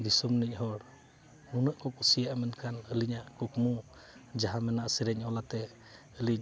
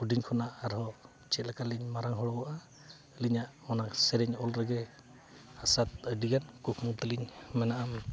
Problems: background sounds at intervals, background conversations at intervals